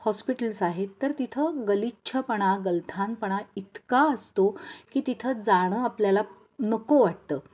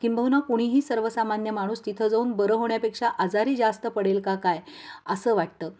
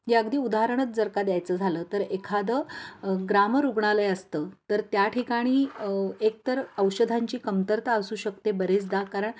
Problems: background sounds at intervals